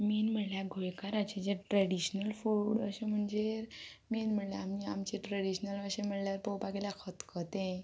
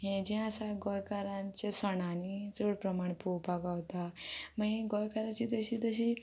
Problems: low volume